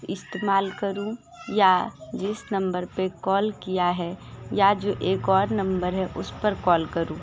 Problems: background sounds at intervals, continuous background conversations